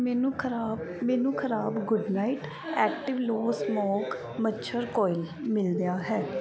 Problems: background sounds at intervals, background conversations at intervals